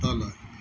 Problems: none marked